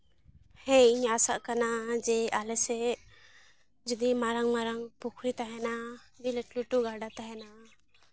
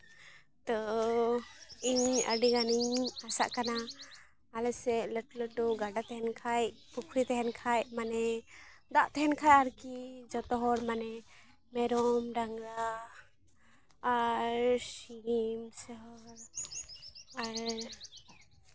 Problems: constant background noise, background conversations at intervals, low volume